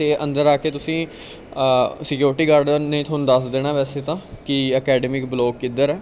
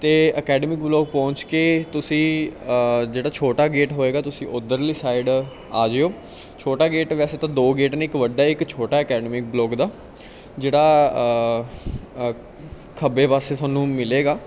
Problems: background conversations at intervals